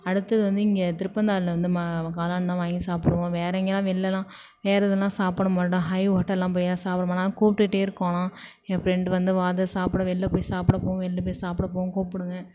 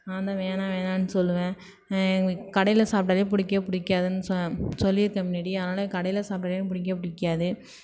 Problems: background sounds at intervals